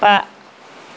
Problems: constant background noise